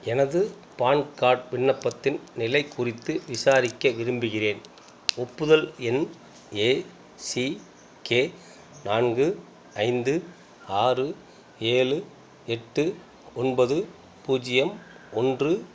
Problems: background sounds at intervals